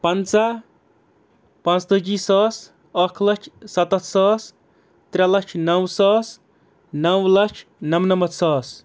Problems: background sounds at intervals